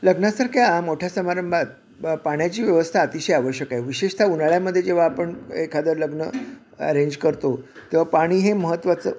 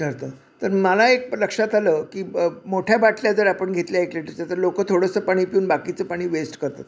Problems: none marked